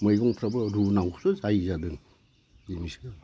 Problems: constant background noise